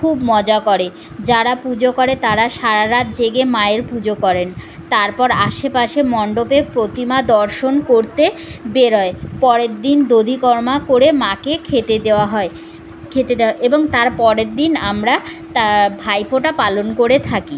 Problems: constant background noise, background conversations at intervals